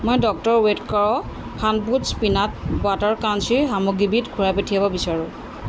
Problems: constant background noise